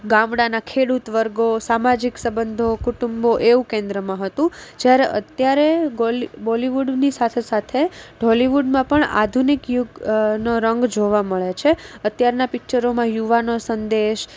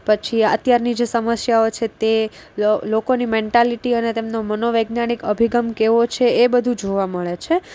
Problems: none marked